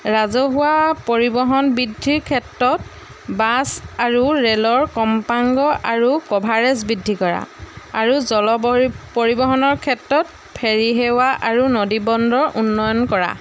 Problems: background sounds at intervals